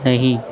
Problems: none marked